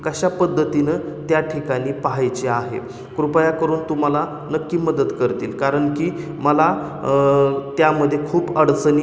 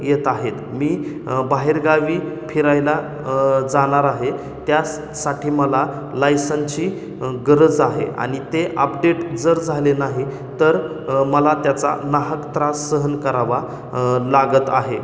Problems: constant background noise, echo